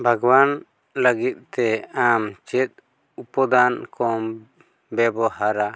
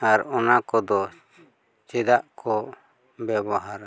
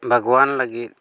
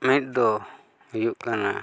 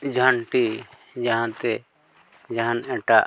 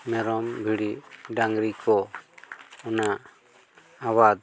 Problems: none marked